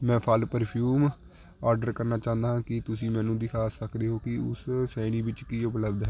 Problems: continuous background conversations